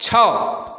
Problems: continuous background conversations